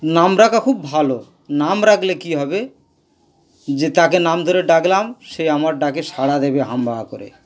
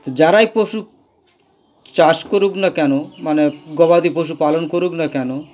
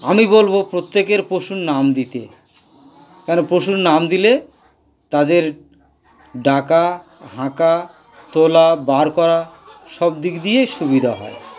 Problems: constant background noise, continuous background conversations